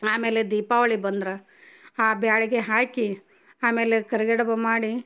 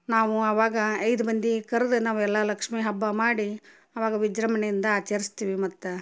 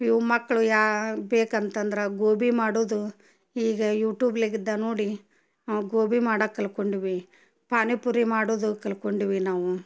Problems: none marked